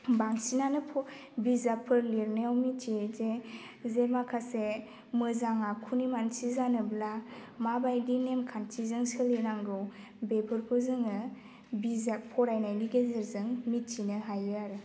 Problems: constant background noise